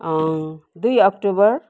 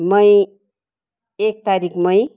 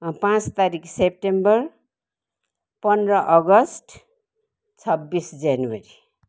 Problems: none marked